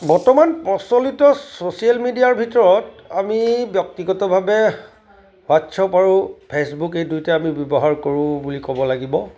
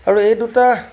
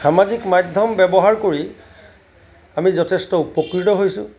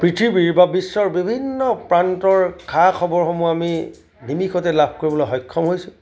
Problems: background sounds at intervals